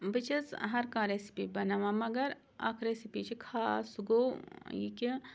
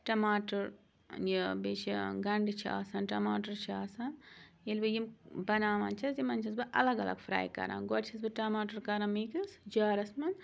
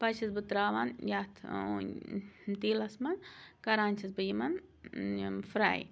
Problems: constant background noise